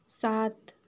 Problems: constant background noise